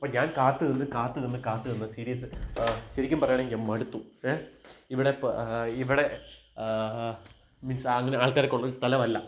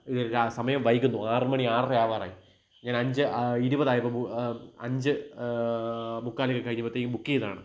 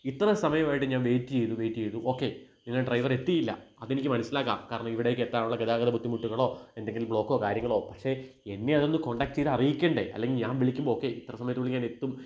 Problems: none marked